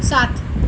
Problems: constant background noise